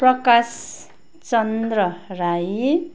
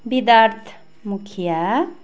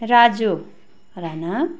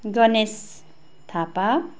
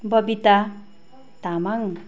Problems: constant background noise